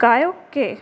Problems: constant background noise